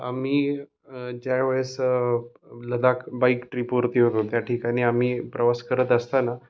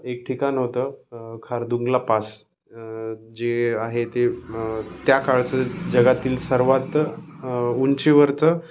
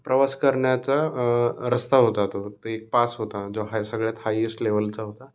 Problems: none marked